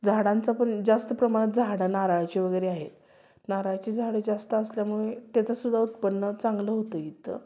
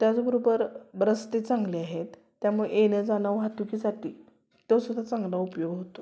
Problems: constant background noise, continuous background conversations